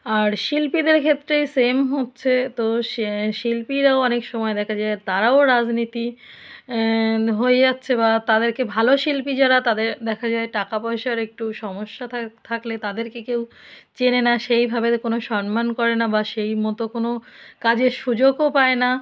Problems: none marked